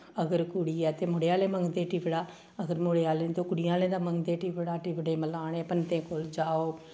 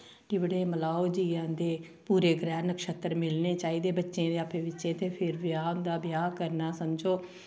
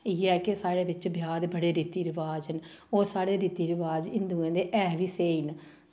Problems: none marked